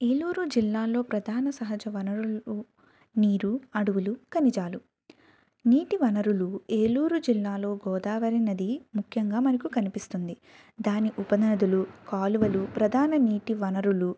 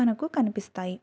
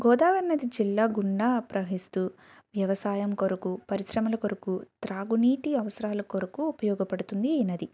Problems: none marked